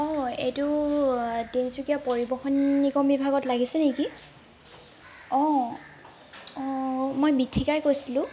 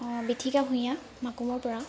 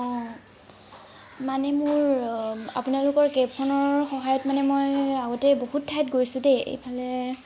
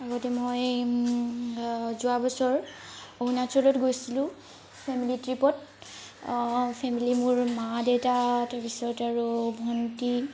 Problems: constant background noise